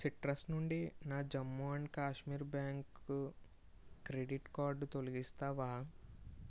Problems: none marked